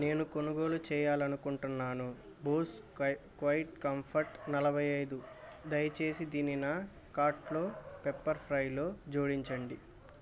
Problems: constant background noise